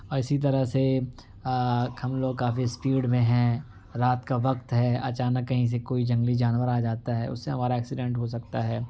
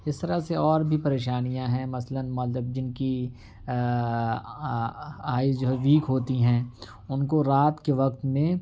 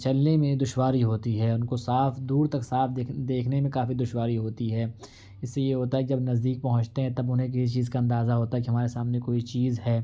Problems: background sounds at intervals